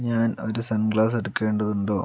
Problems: none marked